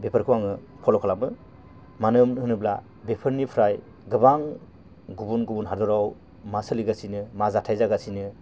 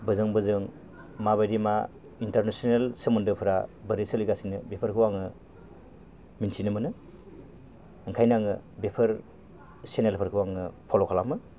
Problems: constant background noise